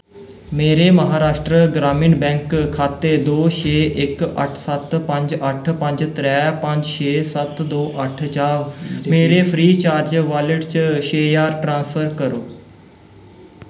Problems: background sounds at intervals, echo